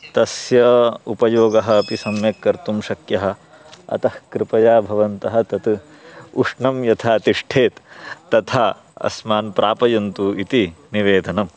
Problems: constant background noise